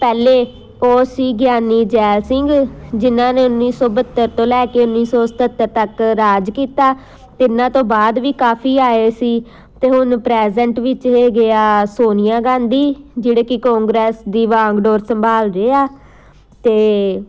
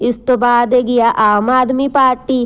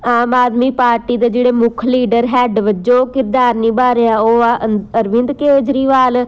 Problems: constant background noise